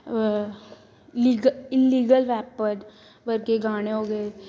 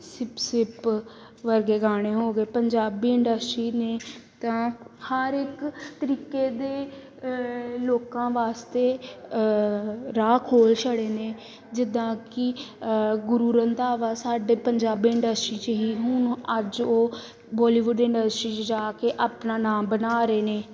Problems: none marked